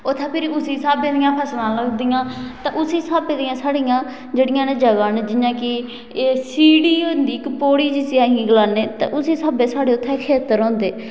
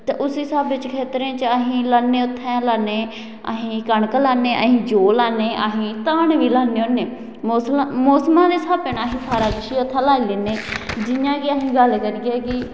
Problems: constant background noise, echo